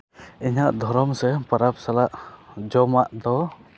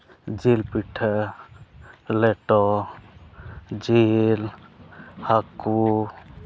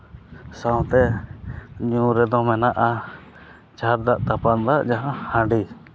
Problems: none marked